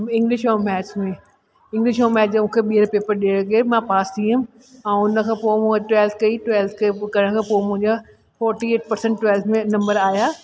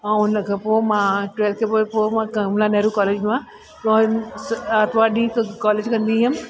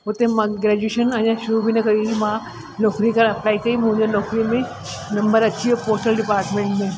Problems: constant background noise, echo